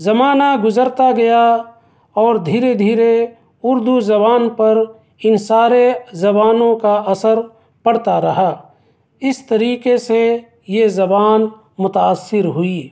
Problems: none marked